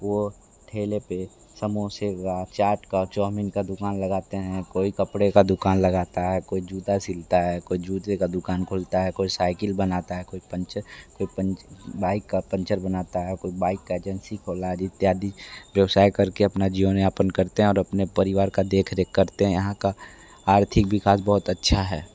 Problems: background sounds at intervals, background conversations at intervals